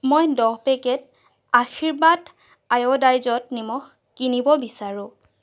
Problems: constant background noise